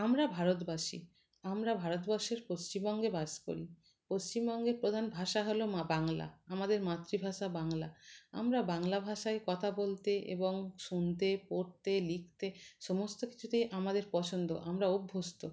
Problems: background sounds at intervals